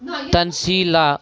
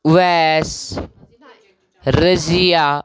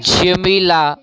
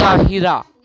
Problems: continuous background conversations